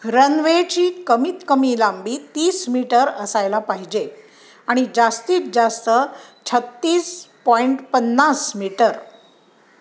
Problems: background sounds at intervals